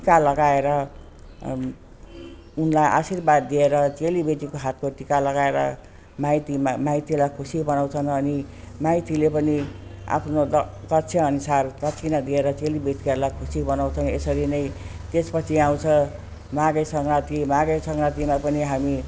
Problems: constant background noise